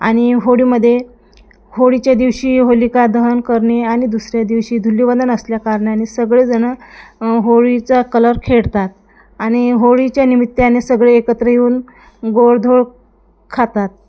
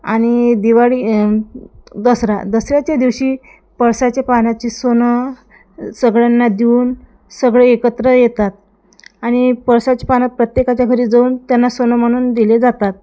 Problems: background sounds at intervals, background conversations at intervals